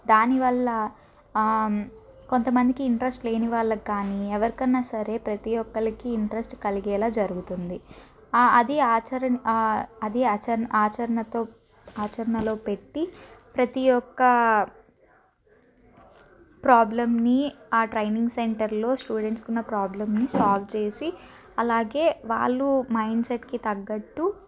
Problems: background sounds at intervals